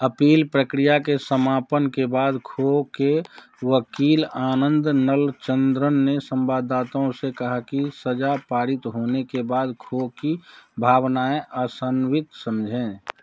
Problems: background sounds at intervals